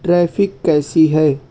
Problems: none marked